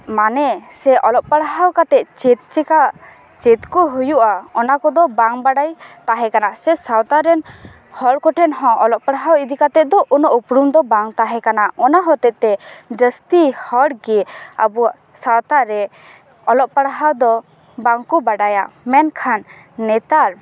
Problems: background sounds at intervals, continuous background conversations